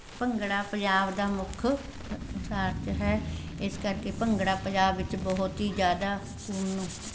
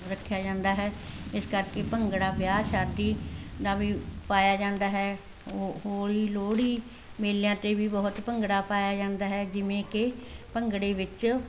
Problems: none marked